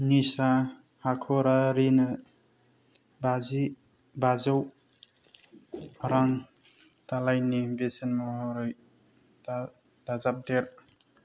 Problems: low volume